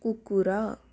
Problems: low volume